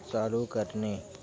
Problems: constant background noise, background conversations at intervals